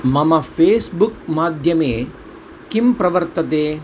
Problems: constant background noise